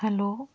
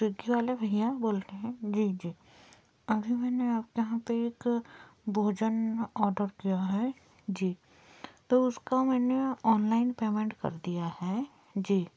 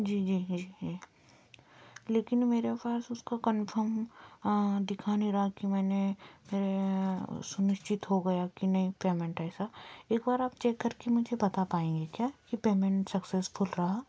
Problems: constant background noise